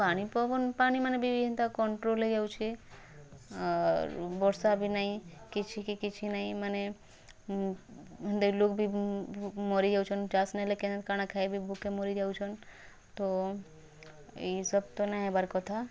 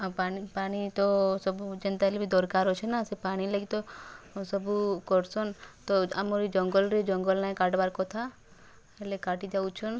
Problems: background sounds at intervals, background conversations at intervals